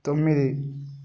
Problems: none marked